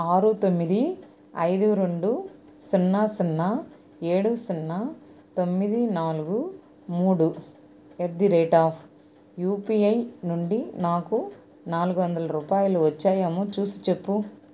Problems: constant background noise